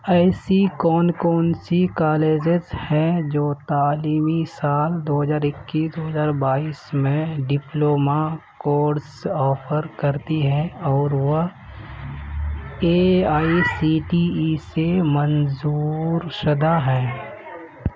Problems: none marked